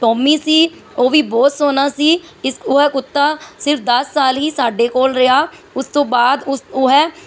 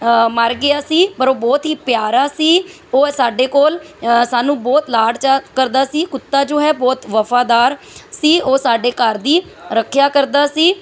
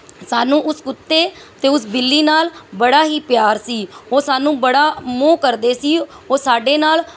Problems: background sounds at intervals